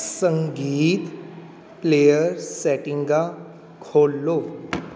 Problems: background sounds at intervals